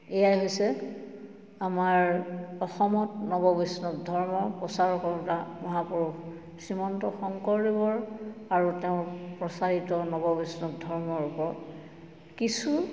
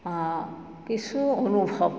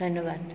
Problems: none marked